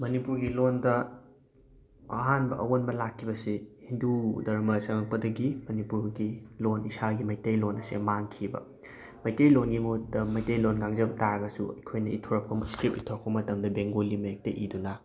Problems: none marked